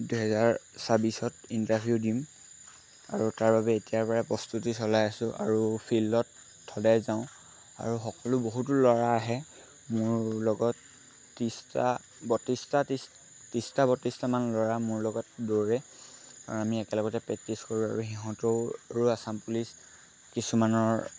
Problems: constant background noise